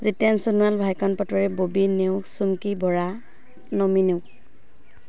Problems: constant background noise